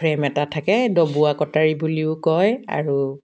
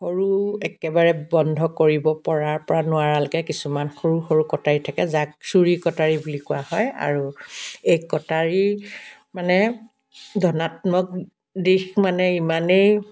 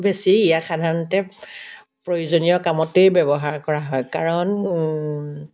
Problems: background sounds at intervals, background conversations at intervals